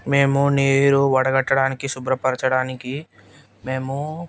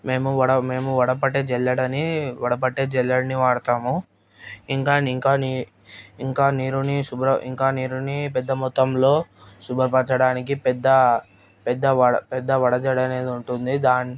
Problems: constant background noise